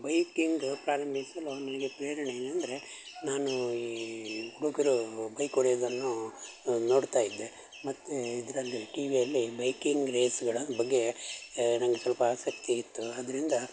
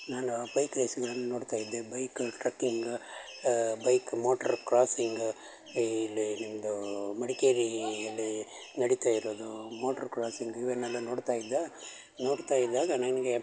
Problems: constant background noise